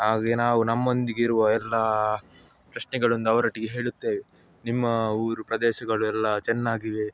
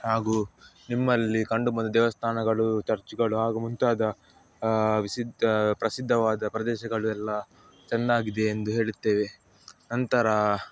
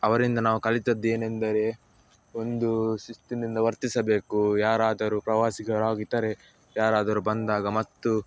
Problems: background sounds at intervals, background conversations at intervals